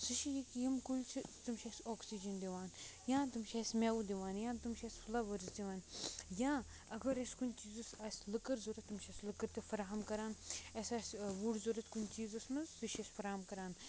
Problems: low volume